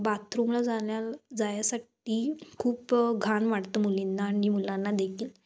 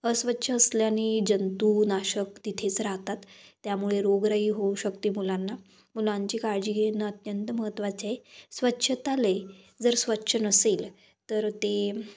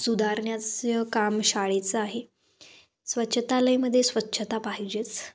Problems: none marked